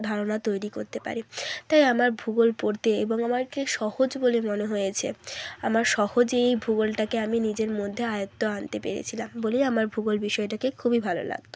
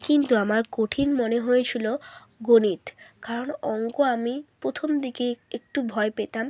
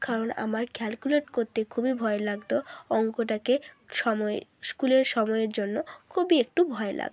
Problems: none marked